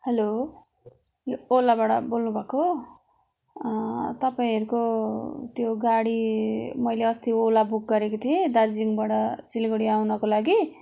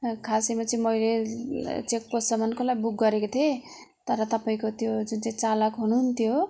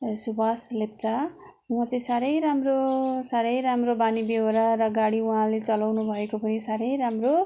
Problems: constant background noise